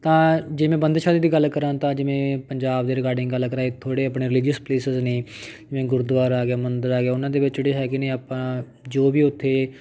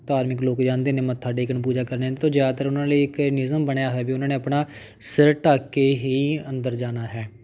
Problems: background sounds at intervals